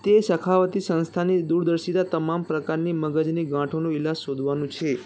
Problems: continuous background conversations